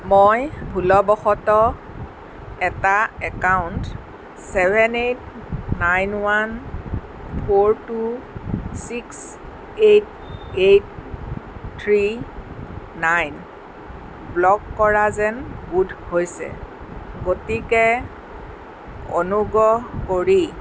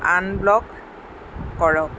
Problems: constant background noise